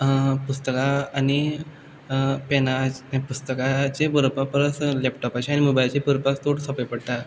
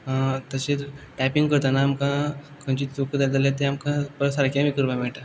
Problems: background sounds at intervals